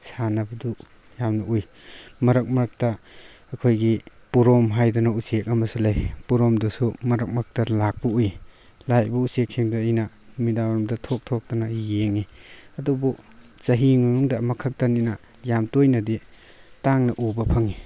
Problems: background sounds at intervals